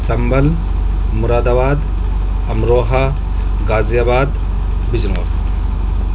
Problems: constant background noise